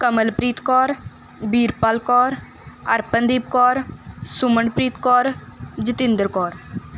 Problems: background sounds at intervals